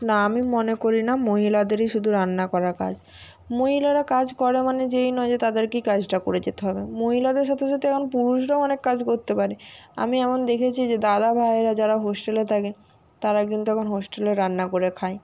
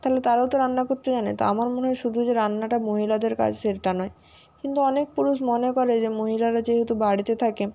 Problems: none marked